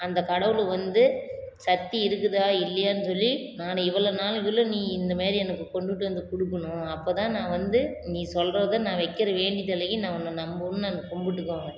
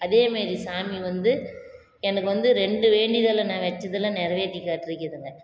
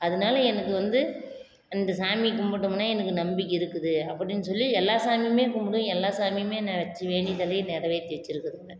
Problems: none marked